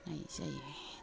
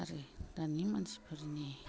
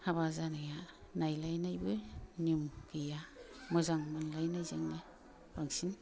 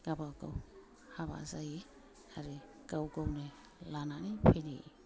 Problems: low volume